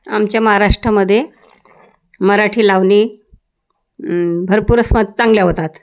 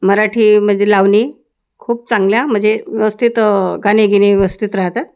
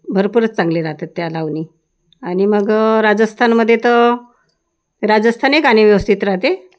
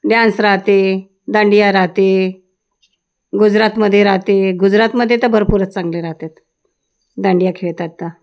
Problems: background sounds at intervals